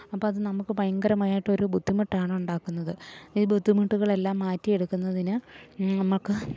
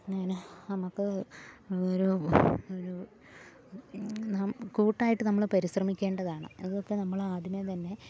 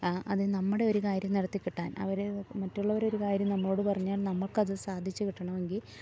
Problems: low volume